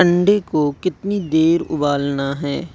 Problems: none marked